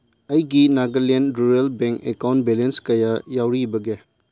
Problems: none marked